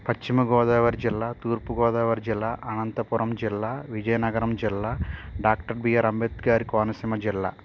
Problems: constant background noise